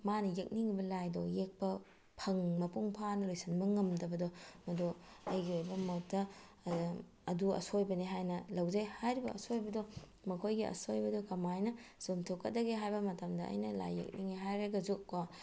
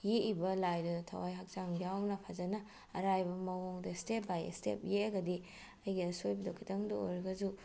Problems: background sounds at intervals